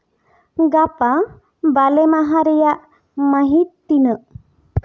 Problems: none marked